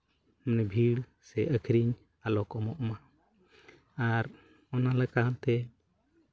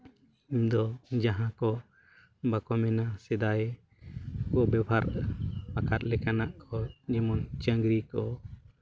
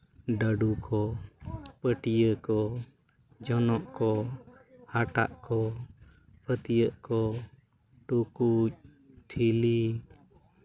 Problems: none marked